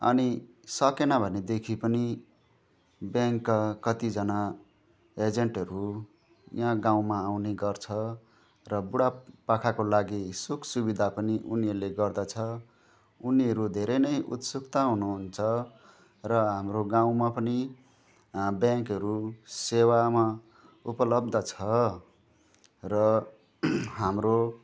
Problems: none marked